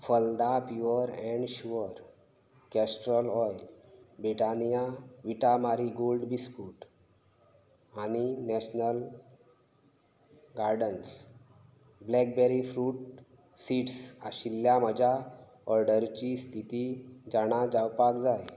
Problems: constant background noise